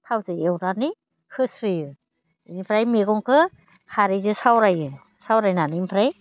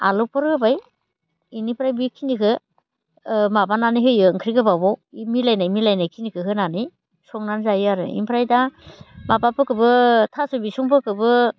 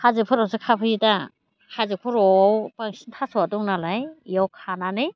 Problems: constant background noise